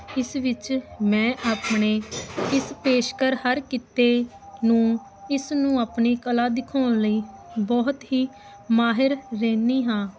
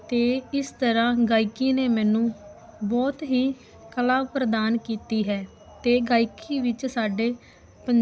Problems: constant background noise